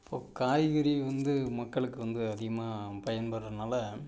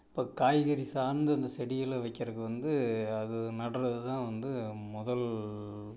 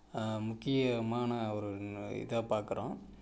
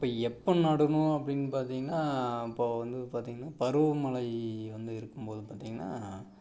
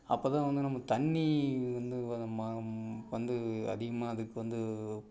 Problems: background sounds at intervals